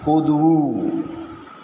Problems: constant background noise, echo